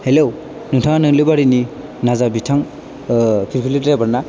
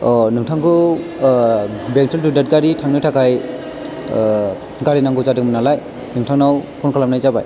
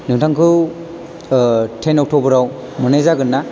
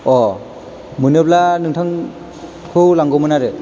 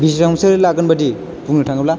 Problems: background sounds at intervals